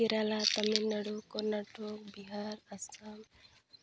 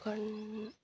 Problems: none marked